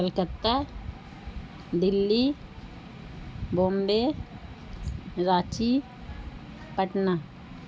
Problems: constant background noise